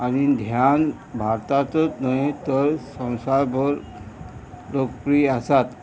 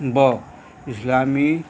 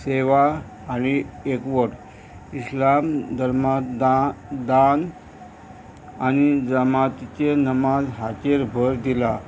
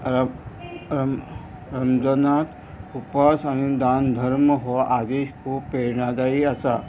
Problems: constant background noise